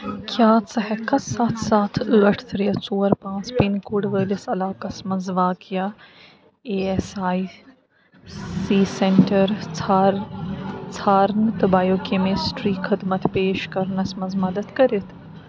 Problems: constant background noise